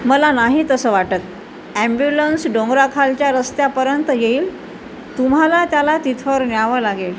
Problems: constant background noise